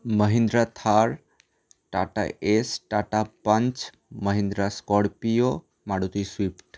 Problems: none marked